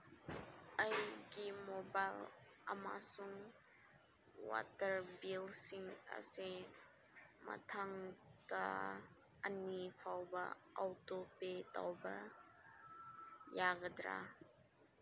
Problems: low volume